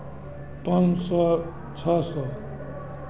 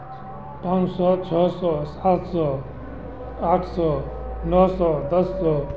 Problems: constant background noise, continuous background conversations